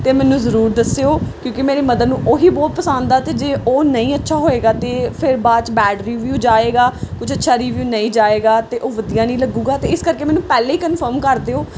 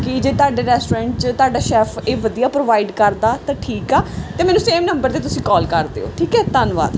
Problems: background sounds at intervals